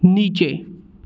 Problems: background sounds at intervals